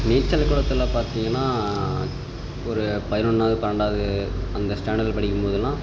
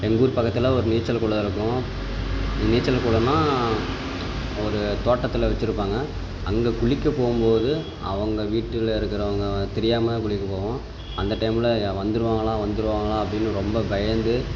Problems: constant background noise